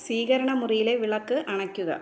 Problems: none marked